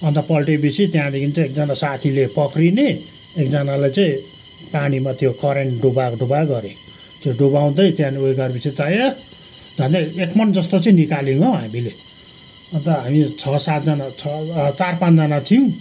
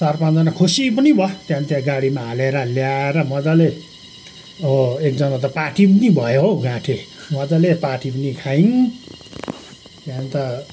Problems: background sounds at intervals